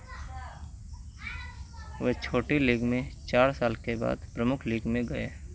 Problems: constant background noise